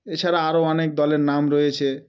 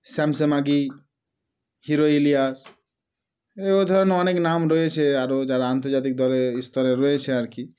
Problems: background sounds at intervals